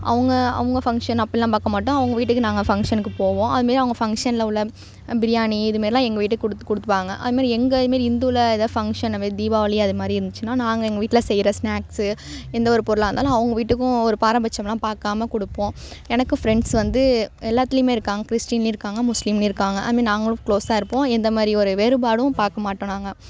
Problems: none marked